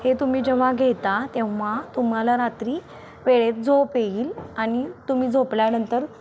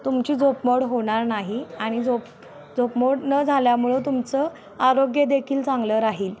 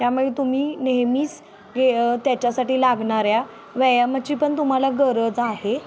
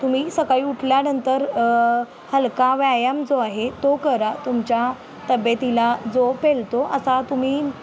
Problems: none marked